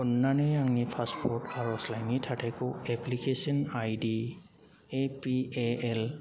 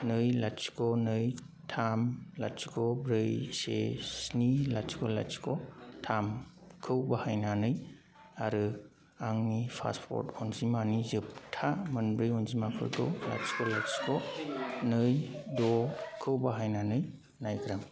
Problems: constant background noise